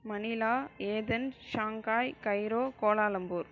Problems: none marked